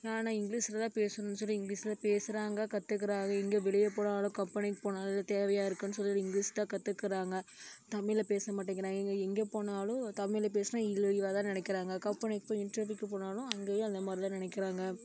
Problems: none marked